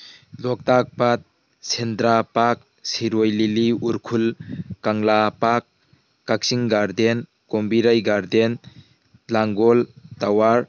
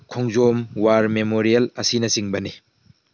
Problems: background sounds at intervals